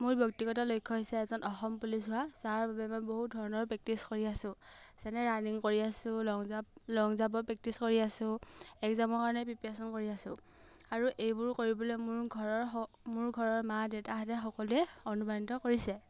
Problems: none marked